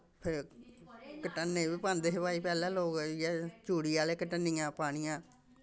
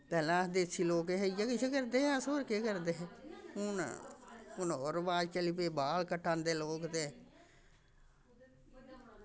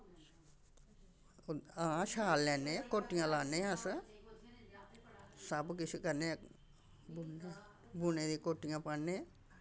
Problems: constant background noise